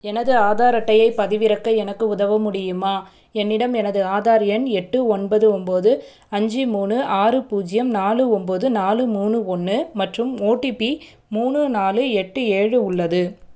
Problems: none marked